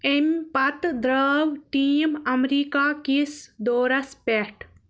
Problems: background sounds at intervals